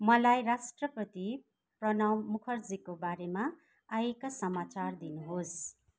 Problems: background conversations at intervals